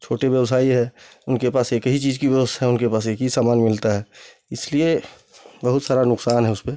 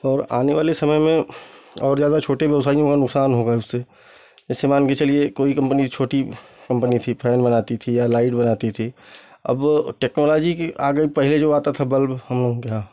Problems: constant background noise